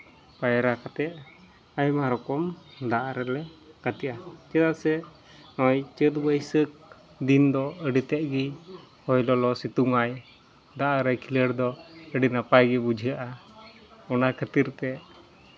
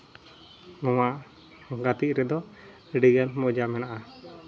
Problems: background sounds at intervals